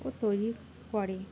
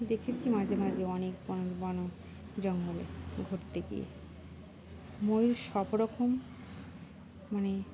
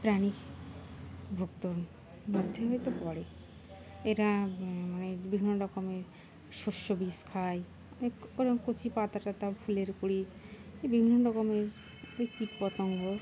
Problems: constant background noise